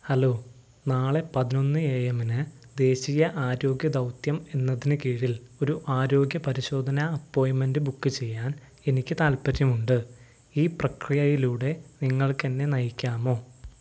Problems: none marked